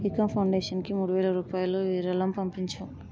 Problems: low volume